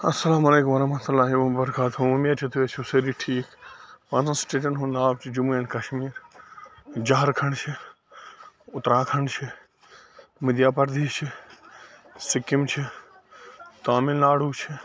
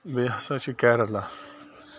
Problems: constant background noise